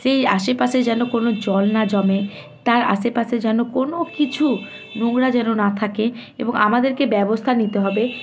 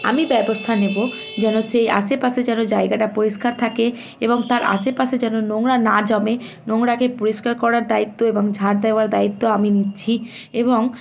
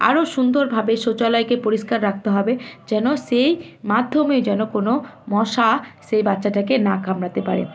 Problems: constant background noise, continuous background conversations